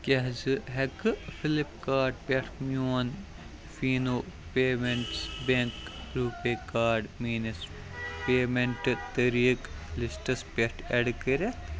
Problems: constant background noise, background conversations at intervals